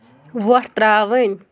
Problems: constant background noise